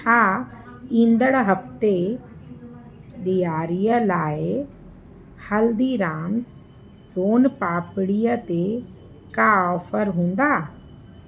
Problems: constant background noise, echo